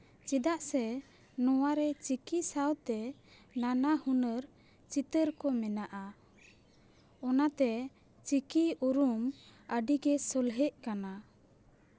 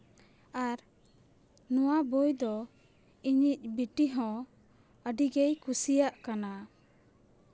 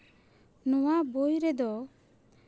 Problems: background sounds at intervals